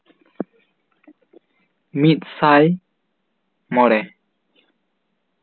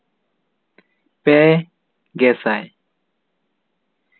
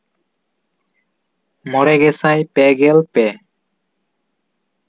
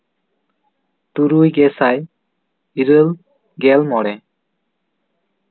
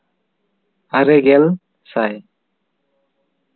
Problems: none marked